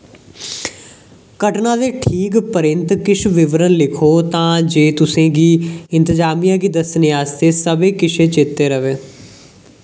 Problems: none marked